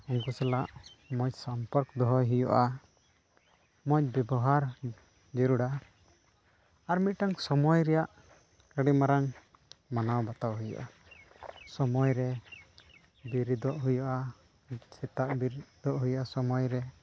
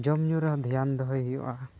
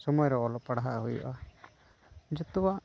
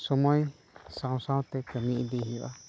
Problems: background sounds at intervals